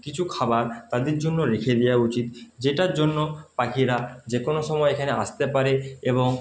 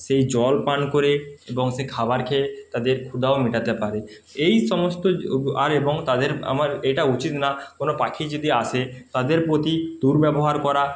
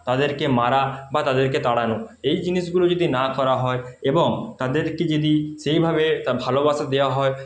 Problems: background sounds at intervals